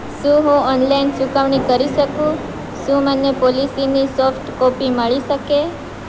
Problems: constant background noise